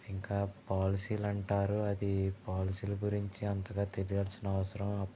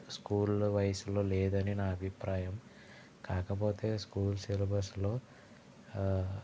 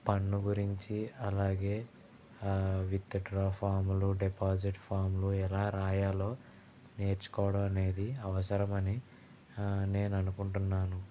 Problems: low volume